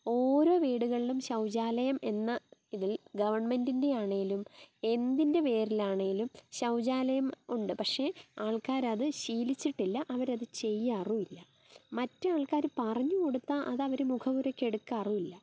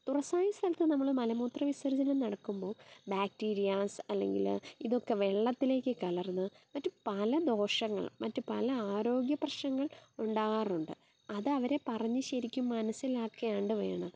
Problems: none marked